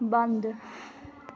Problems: constant background noise